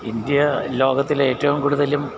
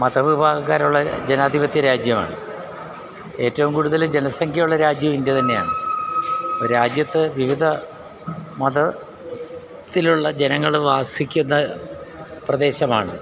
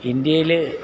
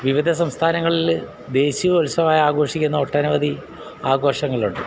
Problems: constant background noise